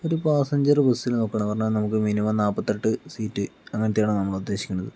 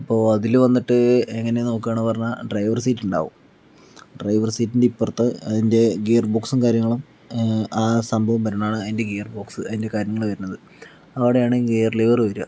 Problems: none marked